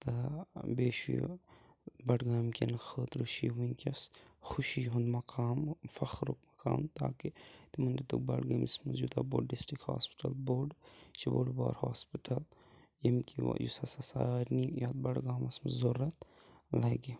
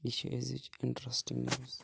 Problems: background sounds at intervals